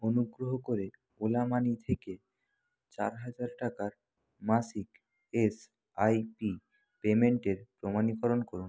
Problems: low volume